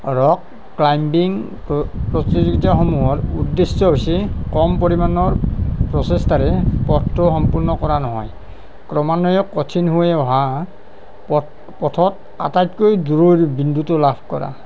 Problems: none marked